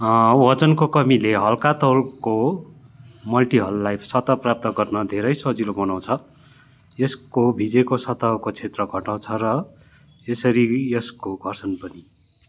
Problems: none marked